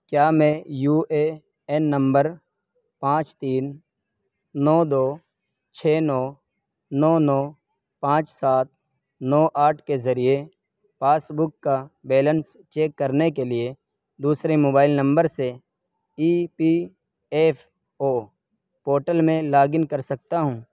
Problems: none marked